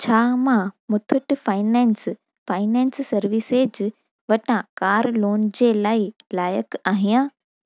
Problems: none marked